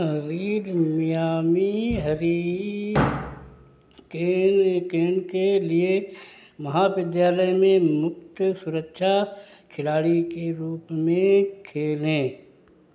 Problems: none marked